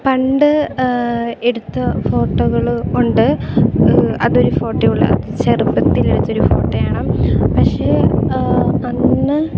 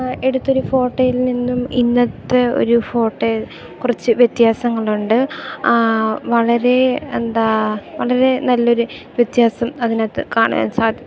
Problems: constant background noise